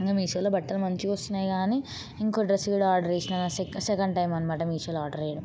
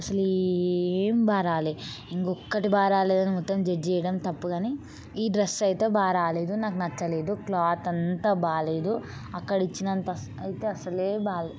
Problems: none marked